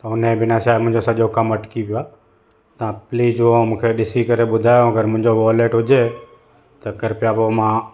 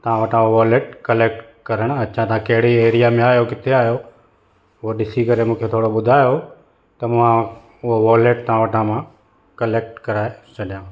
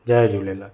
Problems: constant background noise